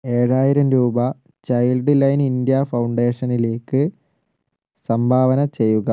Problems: none marked